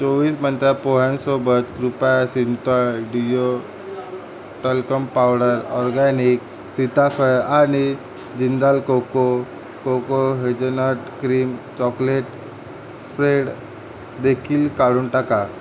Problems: constant background noise